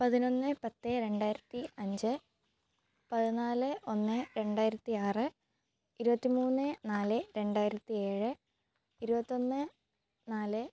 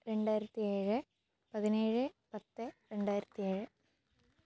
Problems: low volume